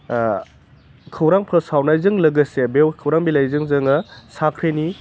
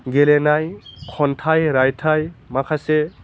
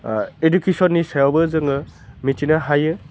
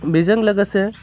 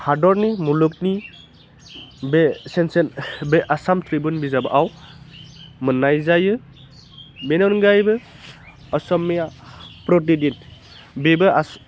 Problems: constant background noise